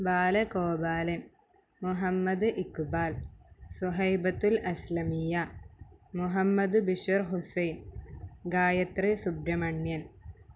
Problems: low volume